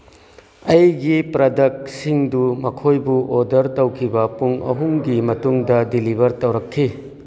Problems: background sounds at intervals